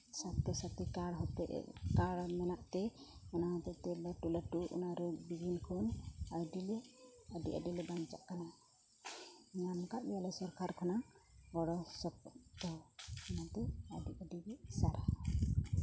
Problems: low volume